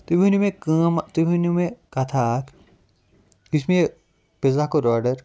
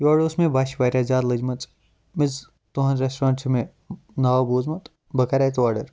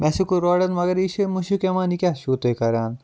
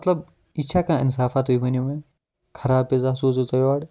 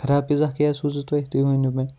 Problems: none marked